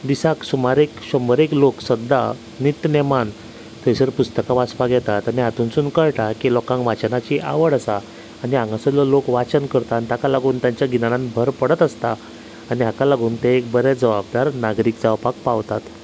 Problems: constant background noise, background conversations at intervals